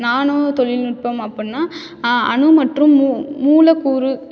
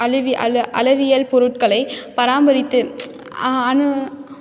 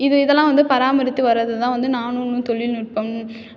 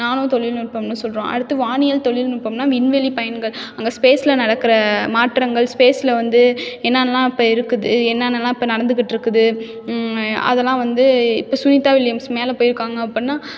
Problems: none marked